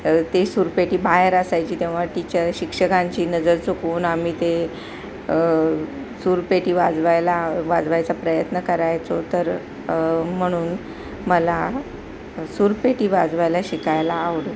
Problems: constant background noise